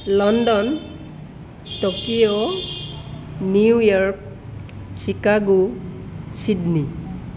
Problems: constant background noise